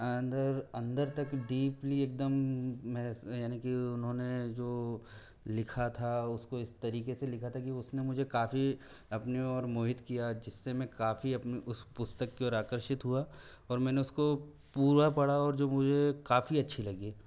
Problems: none marked